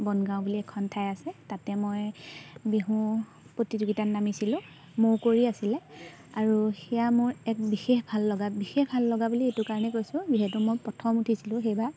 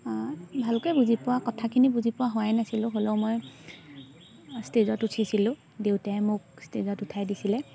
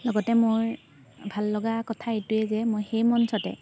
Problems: none marked